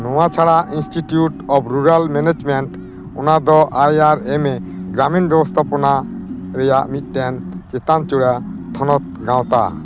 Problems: constant background noise